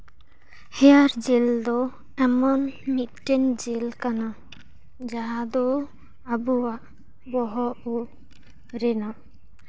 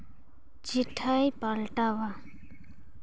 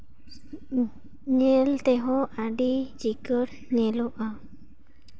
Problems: background sounds at intervals